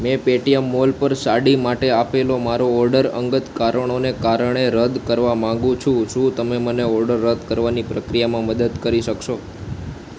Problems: constant background noise